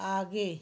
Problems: background sounds at intervals